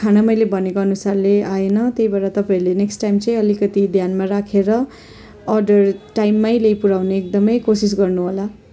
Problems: none marked